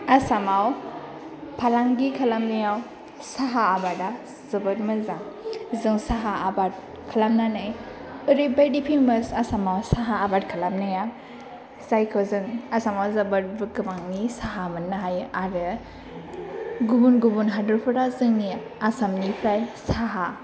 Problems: none marked